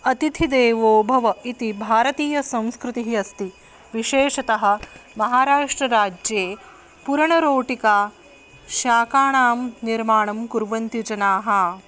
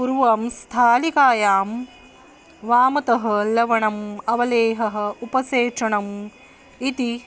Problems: constant background noise